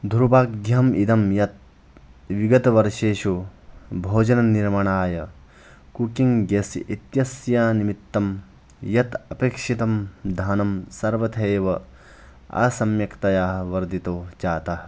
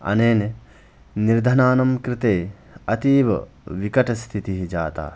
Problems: background sounds at intervals